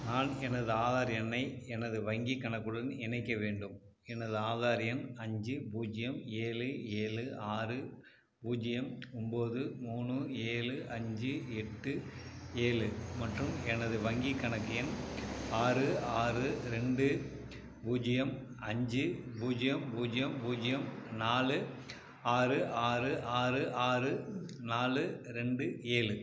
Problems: background sounds at intervals